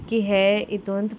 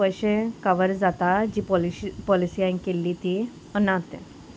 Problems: none marked